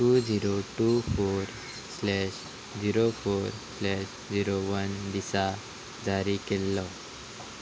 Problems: none marked